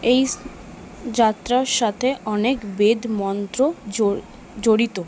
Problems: background sounds at intervals